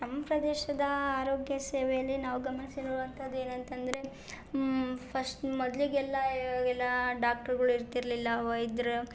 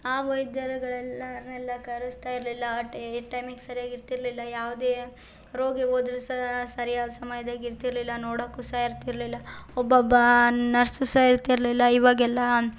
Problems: none marked